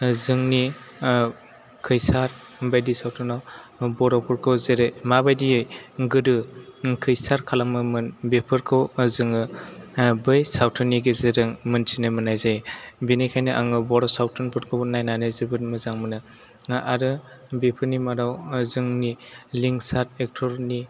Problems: background sounds at intervals